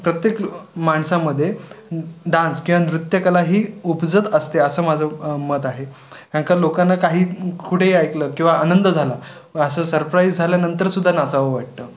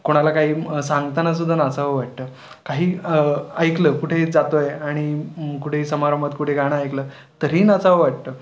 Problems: none marked